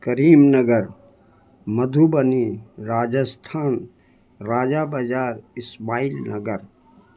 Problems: constant background noise